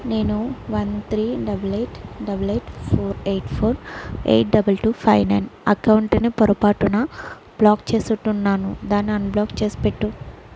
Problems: constant background noise